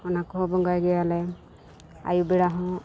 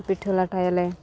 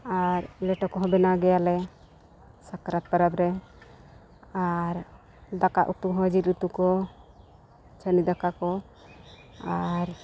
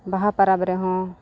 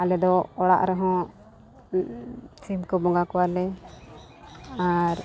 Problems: background sounds at intervals, background conversations at intervals